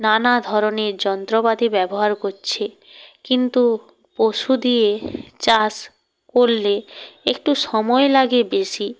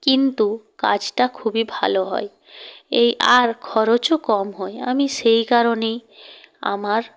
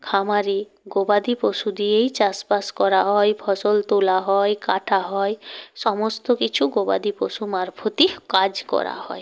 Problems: none marked